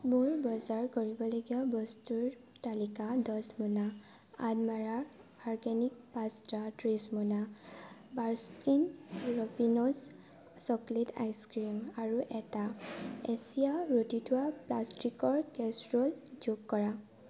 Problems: background sounds at intervals